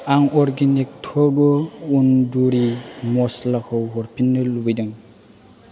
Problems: constant background noise